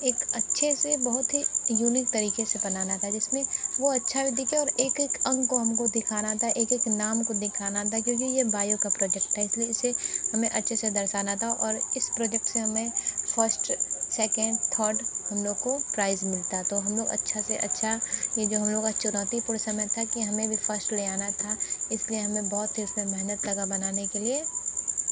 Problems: constant background noise, continuous background conversations